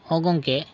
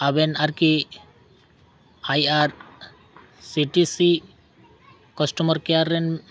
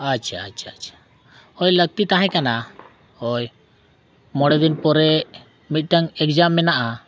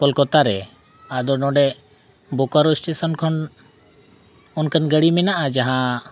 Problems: none marked